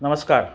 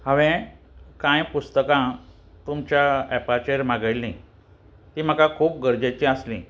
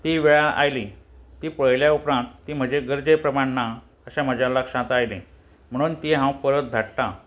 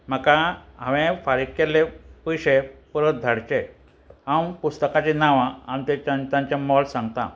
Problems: constant background noise